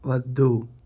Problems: constant background noise